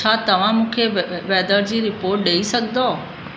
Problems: constant background noise, echo